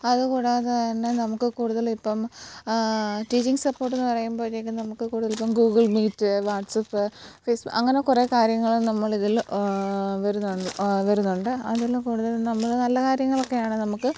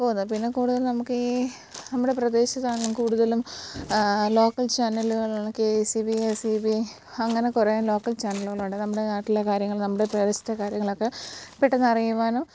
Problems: background sounds at intervals